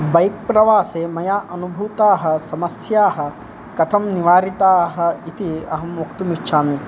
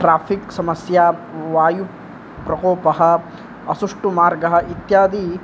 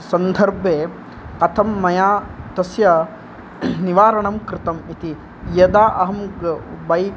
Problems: none marked